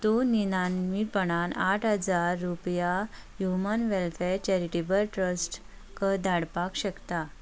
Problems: none marked